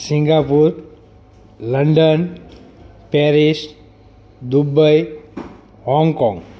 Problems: background sounds at intervals, background conversations at intervals